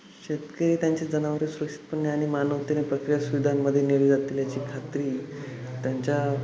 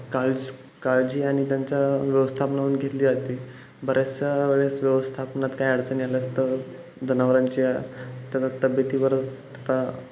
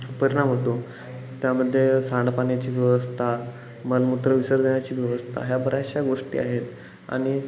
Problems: background sounds at intervals